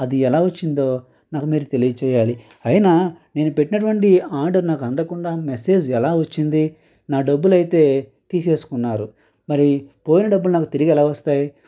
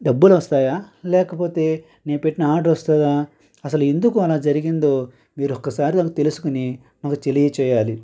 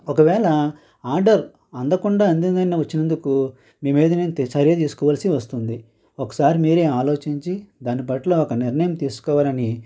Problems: constant background noise